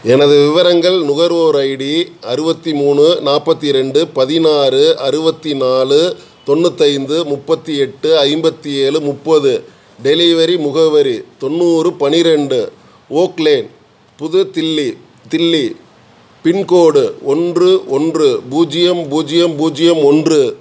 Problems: none marked